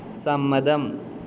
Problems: background sounds at intervals, low volume